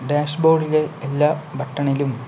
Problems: constant background noise